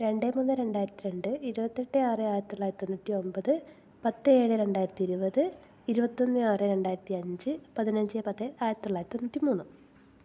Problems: none marked